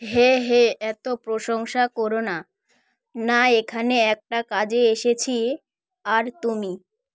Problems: background conversations at intervals